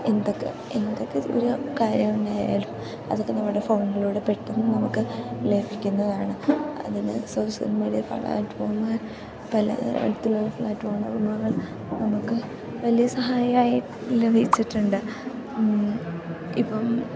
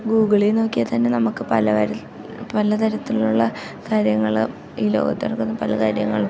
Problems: constant background noise, low volume